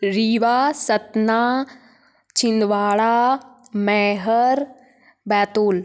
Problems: none marked